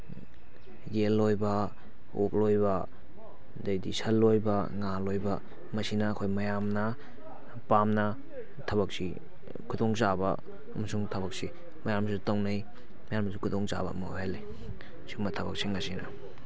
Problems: background conversations at intervals